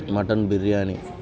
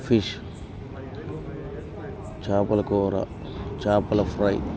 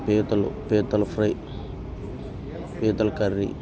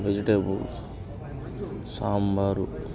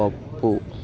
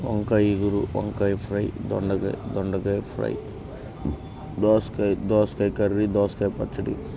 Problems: constant background noise, background conversations at intervals